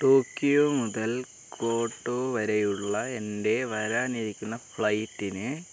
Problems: background sounds at intervals